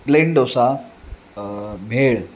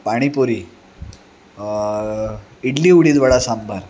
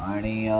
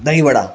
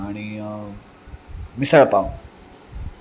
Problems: constant background noise